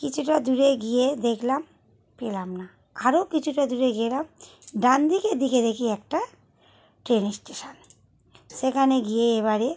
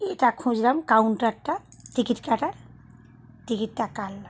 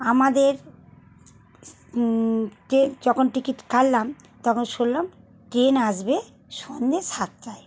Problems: none marked